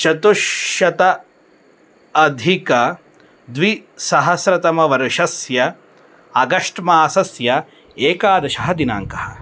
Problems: none marked